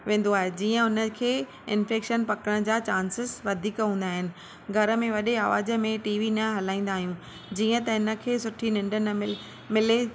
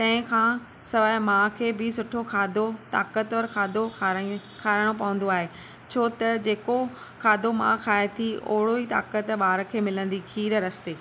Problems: constant background noise